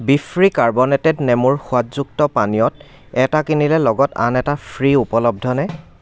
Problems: background sounds at intervals